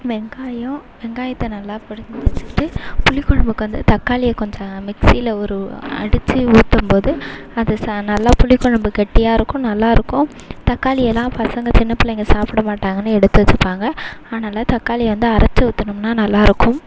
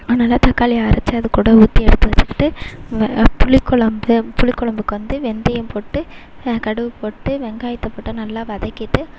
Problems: constant background noise, background conversations at intervals